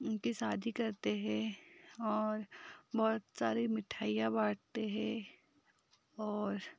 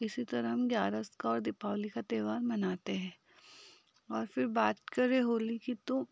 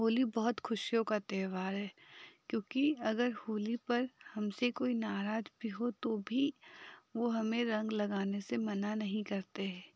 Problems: none marked